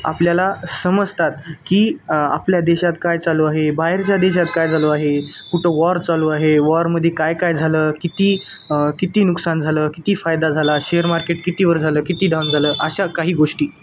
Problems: none marked